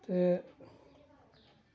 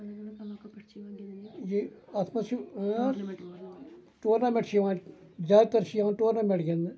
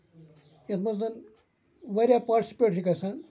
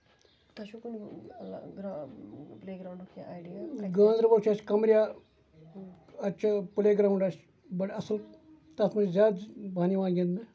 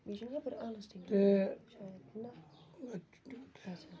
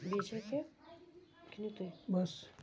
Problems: background sounds at intervals, low volume